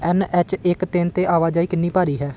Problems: background sounds at intervals